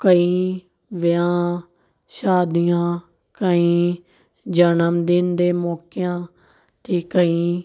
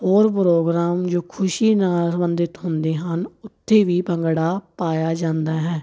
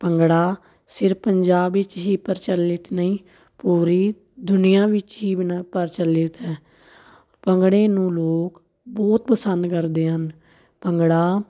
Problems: none marked